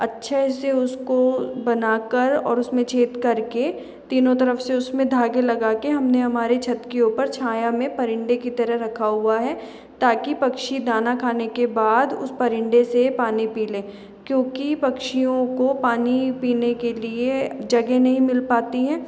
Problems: background sounds at intervals